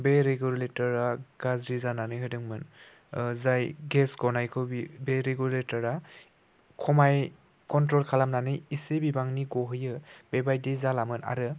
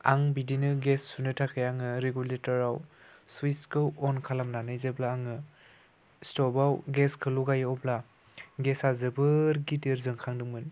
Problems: constant background noise